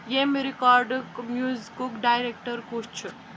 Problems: constant background noise